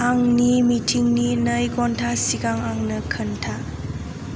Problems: constant background noise